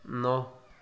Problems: background conversations at intervals